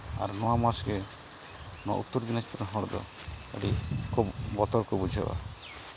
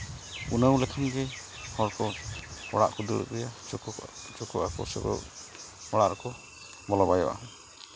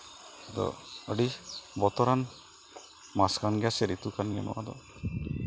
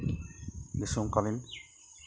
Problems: constant background noise